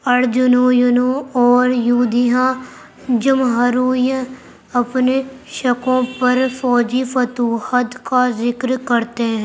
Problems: constant background noise